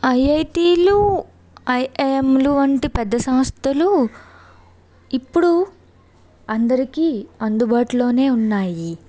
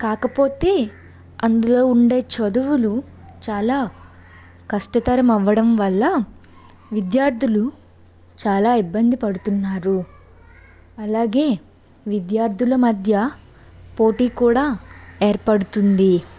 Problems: none marked